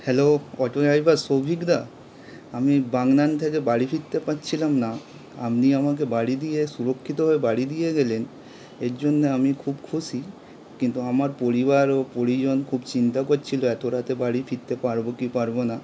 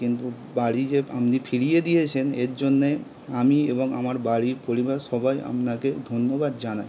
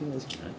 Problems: constant background noise